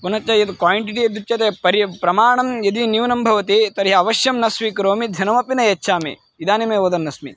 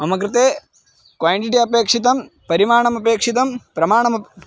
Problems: constant background noise